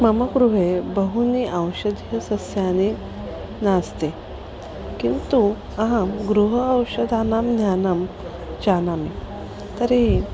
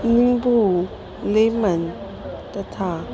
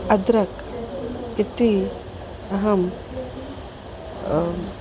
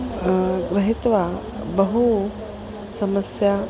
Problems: background sounds at intervals